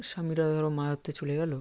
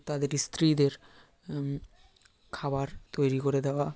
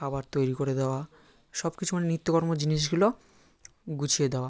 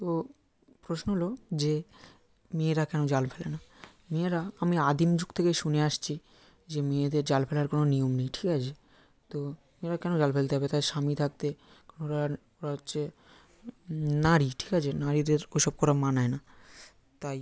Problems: background conversations at intervals